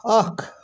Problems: none marked